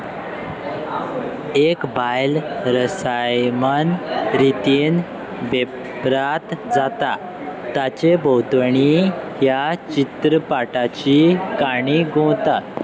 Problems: constant background noise, continuous background conversations